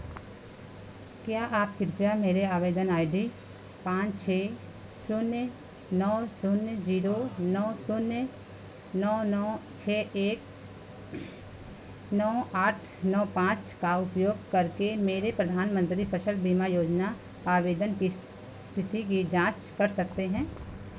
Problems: none marked